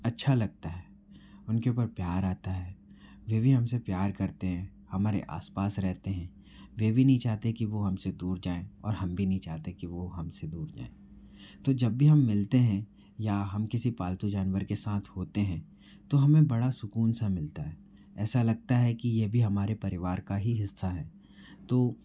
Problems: low volume